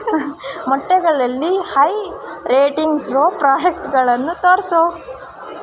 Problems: constant background noise